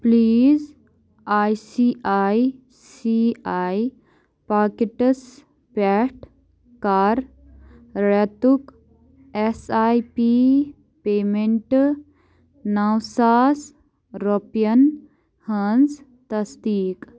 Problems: background sounds at intervals